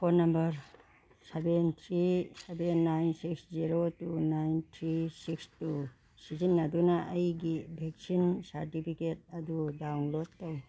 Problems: background sounds at intervals